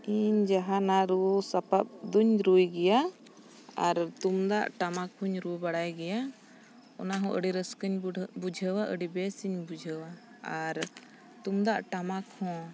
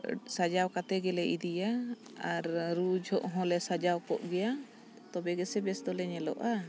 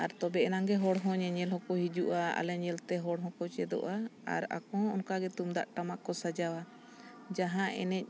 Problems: none marked